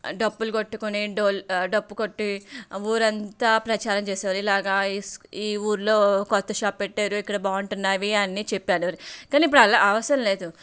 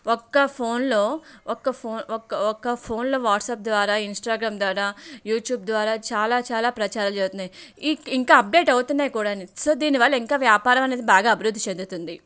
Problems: background sounds at intervals